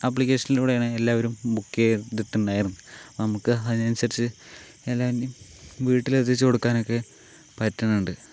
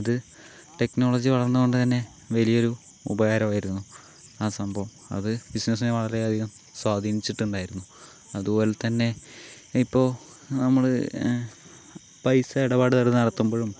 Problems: none marked